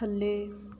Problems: background sounds at intervals